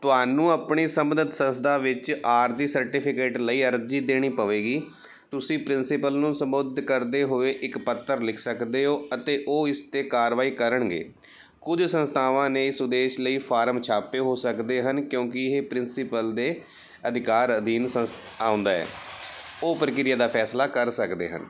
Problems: background sounds at intervals